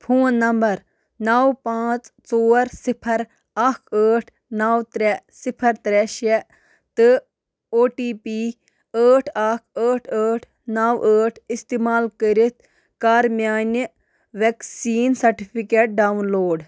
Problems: background sounds at intervals